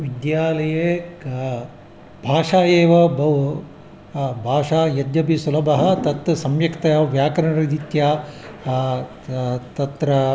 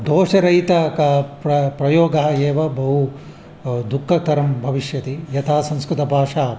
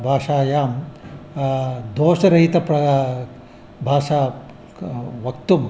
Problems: constant background noise